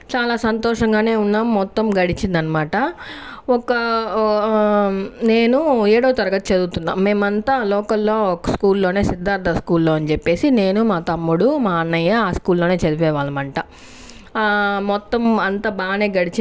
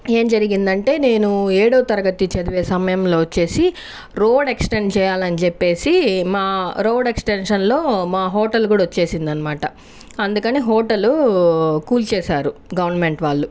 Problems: constant background noise